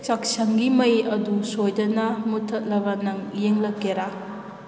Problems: constant background noise